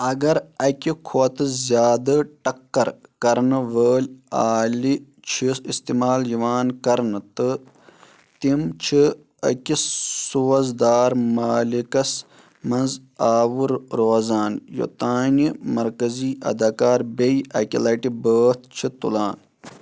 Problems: background sounds at intervals